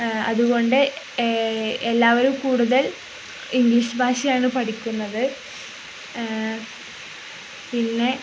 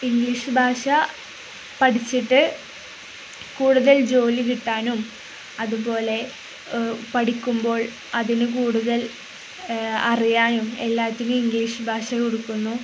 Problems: none marked